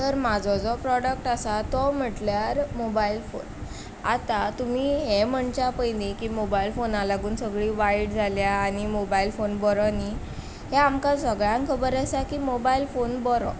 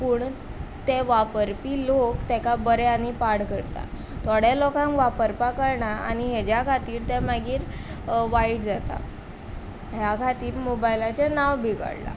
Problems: background sounds at intervals